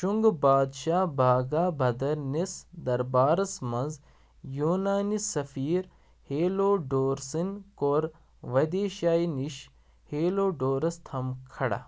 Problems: none marked